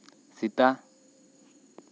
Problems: constant background noise